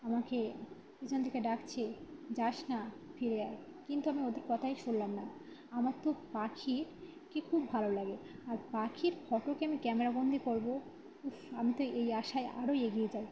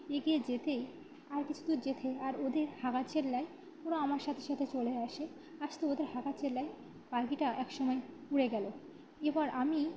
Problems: none marked